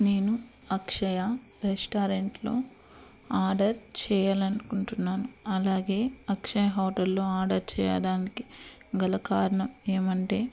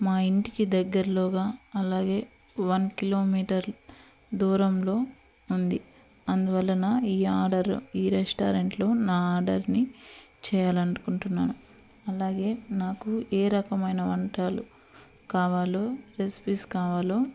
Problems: constant background noise